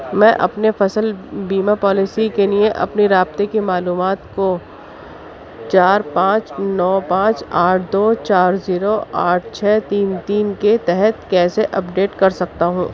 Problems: constant background noise, background conversations at intervals